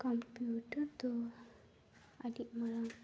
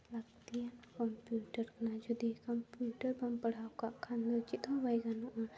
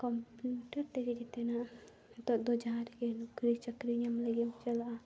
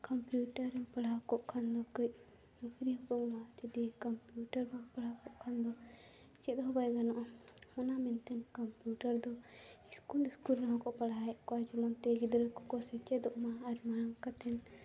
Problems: low volume